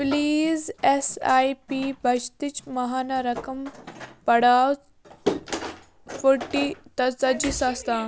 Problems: constant background noise, background conversations at intervals